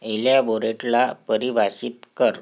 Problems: background sounds at intervals